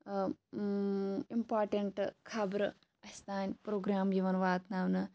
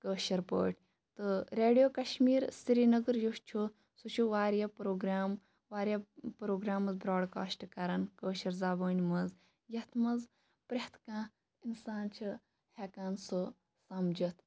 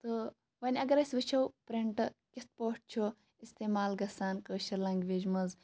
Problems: background sounds at intervals